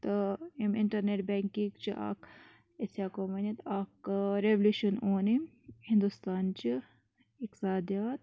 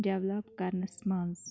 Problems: low volume